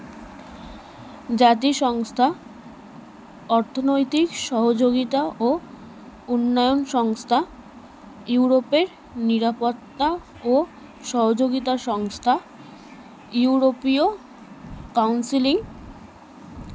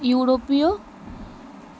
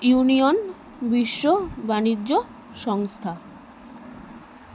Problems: none marked